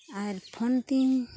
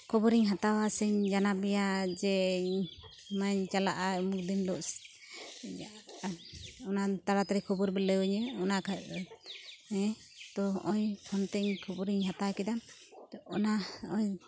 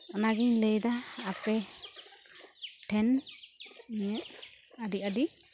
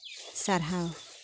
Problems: constant background noise